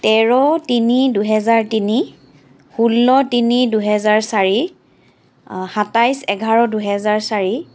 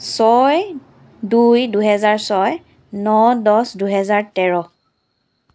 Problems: background sounds at intervals